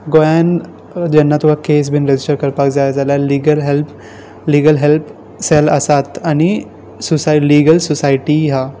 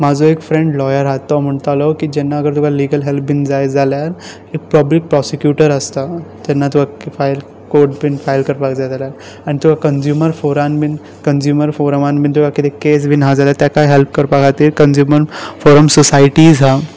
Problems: constant background noise